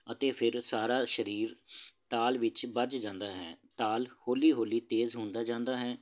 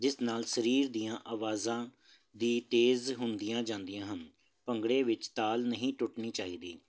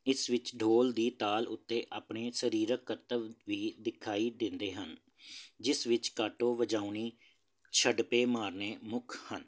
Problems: none marked